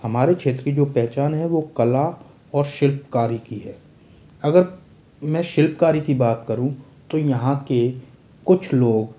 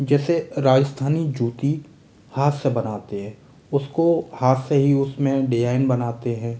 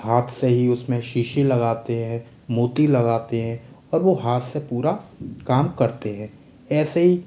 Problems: none marked